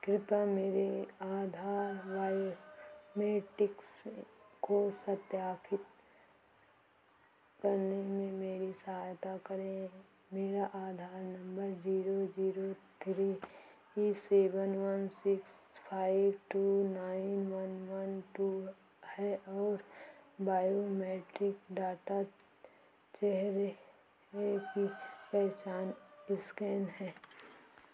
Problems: constant background noise, echo, low volume